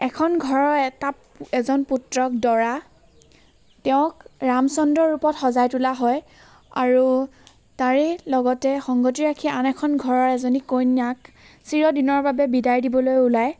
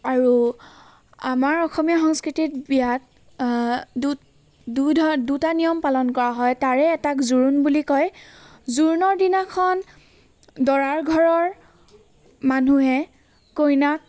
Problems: constant background noise